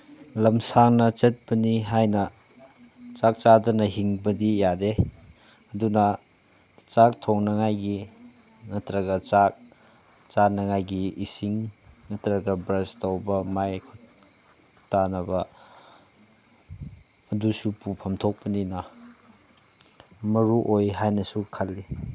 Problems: none marked